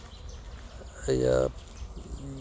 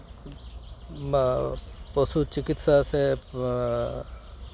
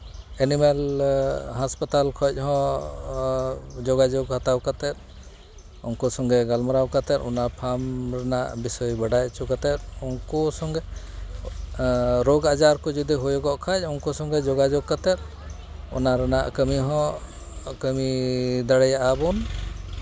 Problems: constant background noise, background conversations at intervals